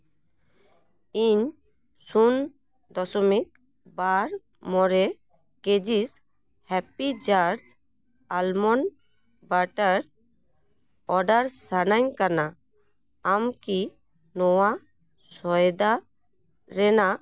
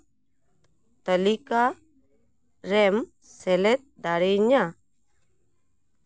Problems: none marked